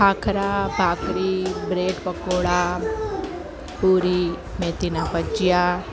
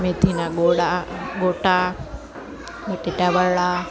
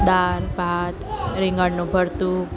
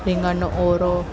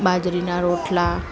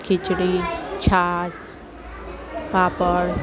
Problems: constant background noise, continuous background conversations